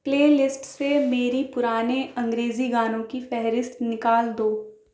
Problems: none marked